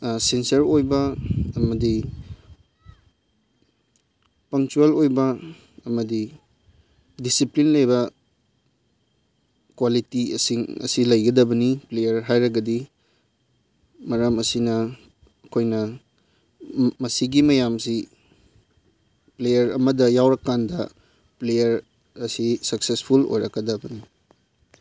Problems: none marked